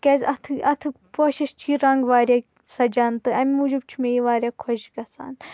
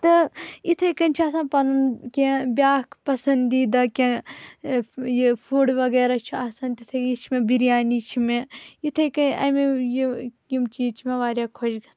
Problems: constant background noise